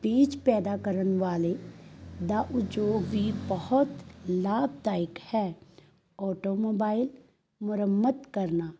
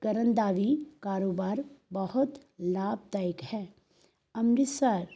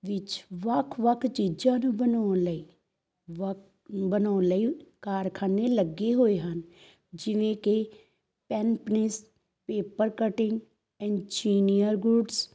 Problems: background sounds at intervals